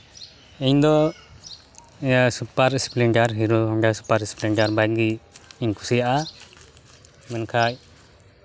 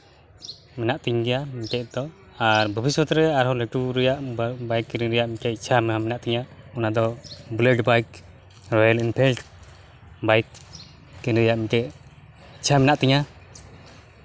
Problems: background sounds at intervals